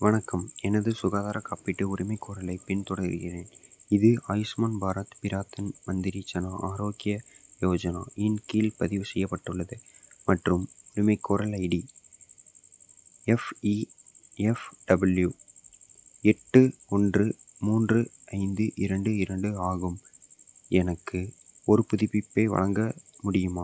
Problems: background sounds at intervals